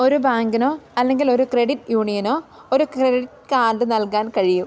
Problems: constant background noise